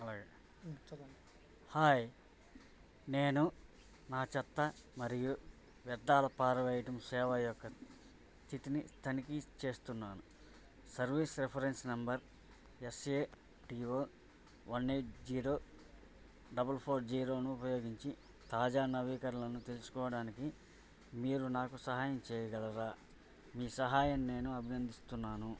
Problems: low volume